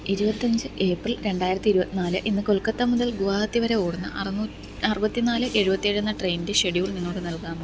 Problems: constant background noise